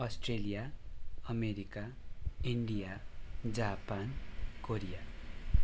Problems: background sounds at intervals